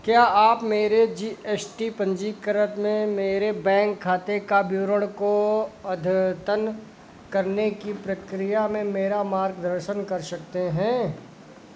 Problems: none marked